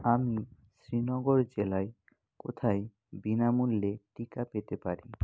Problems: none marked